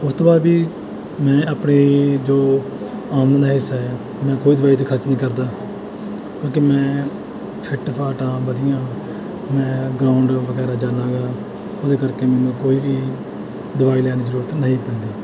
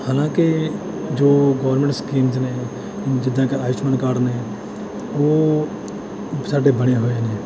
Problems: background sounds at intervals